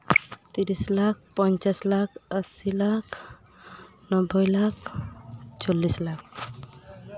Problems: background conversations at intervals